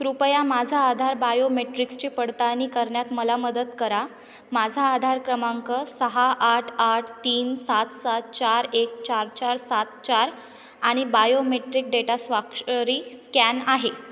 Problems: constant background noise